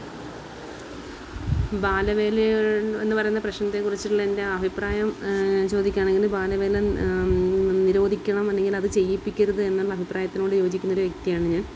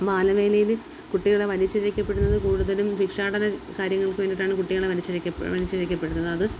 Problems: constant background noise